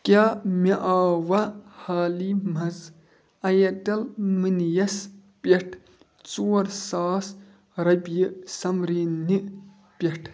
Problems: background sounds at intervals